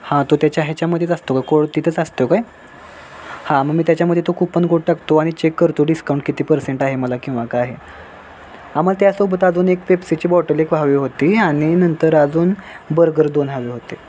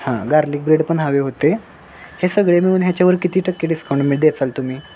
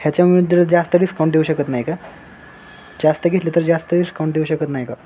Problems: background sounds at intervals